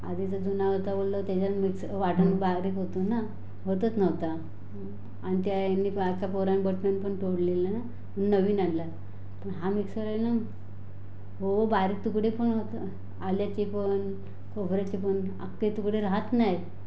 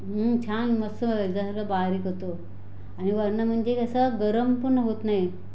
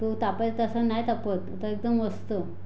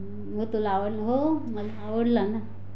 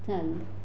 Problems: constant background noise